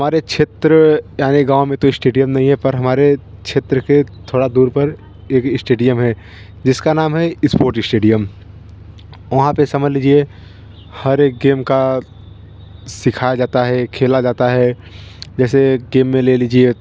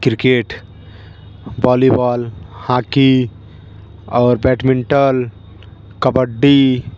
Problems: constant background noise